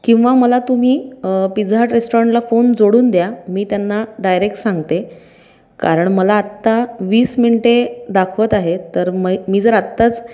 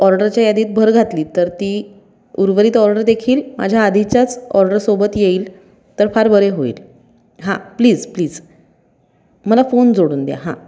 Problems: none marked